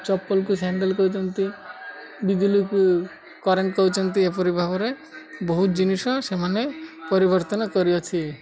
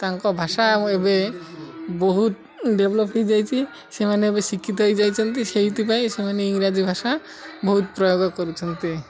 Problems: constant background noise, continuous background conversations